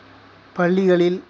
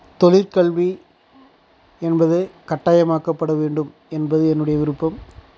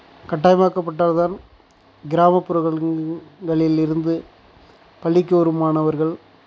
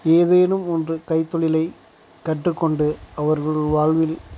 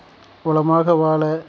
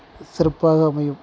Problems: background sounds at intervals